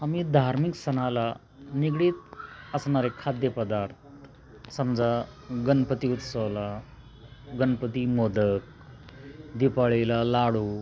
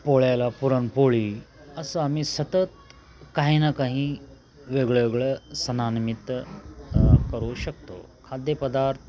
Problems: constant background noise, background conversations at intervals